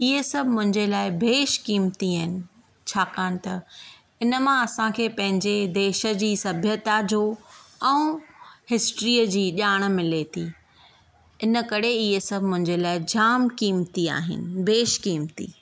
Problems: none marked